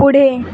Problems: constant background noise